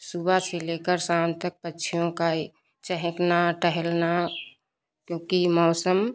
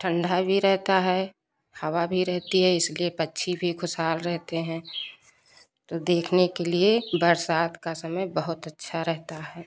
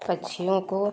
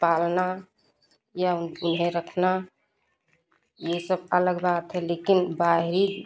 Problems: constant background noise, background conversations at intervals